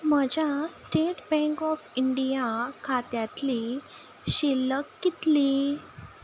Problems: none marked